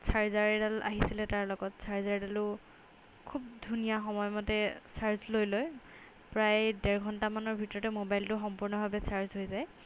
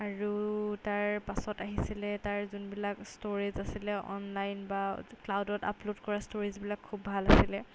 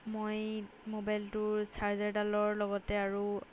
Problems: none marked